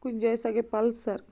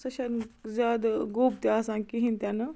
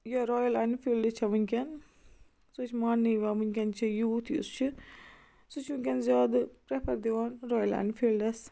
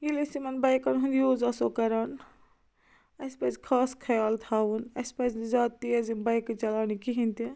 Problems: none marked